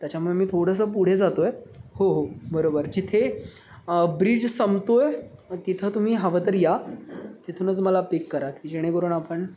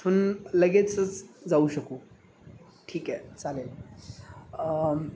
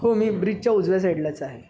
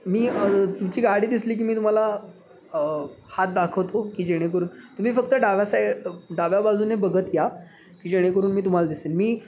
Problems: constant background noise